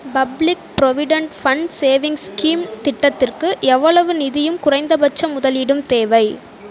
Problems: background conversations at intervals